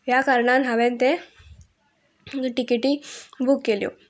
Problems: background sounds at intervals, background conversations at intervals